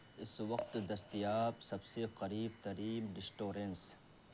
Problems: constant background noise, low volume